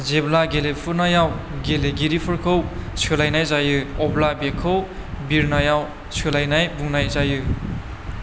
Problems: none marked